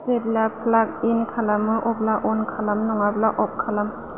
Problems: none marked